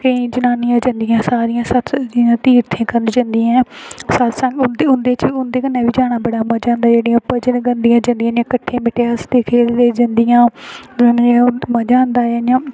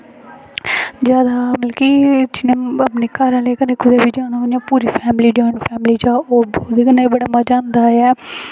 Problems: background sounds at intervals